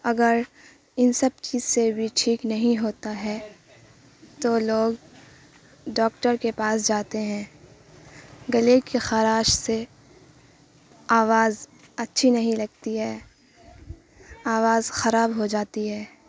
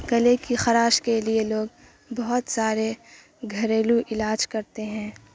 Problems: constant background noise